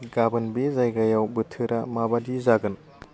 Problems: constant background noise